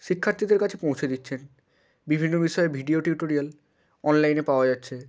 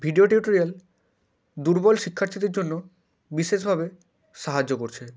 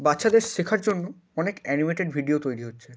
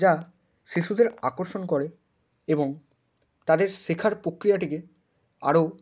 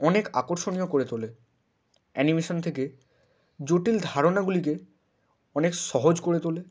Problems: constant background noise